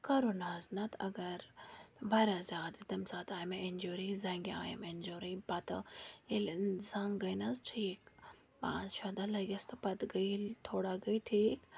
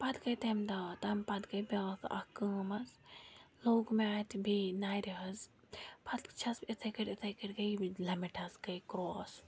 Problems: background sounds at intervals, low volume